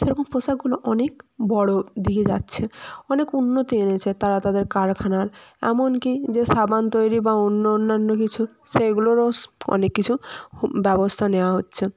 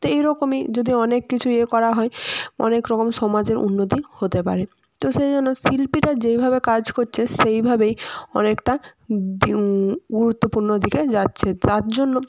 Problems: none marked